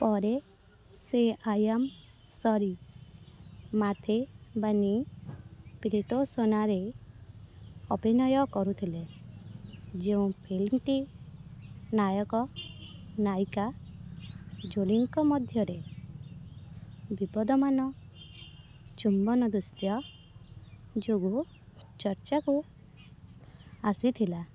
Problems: constant background noise